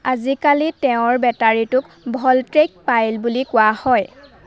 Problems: constant background noise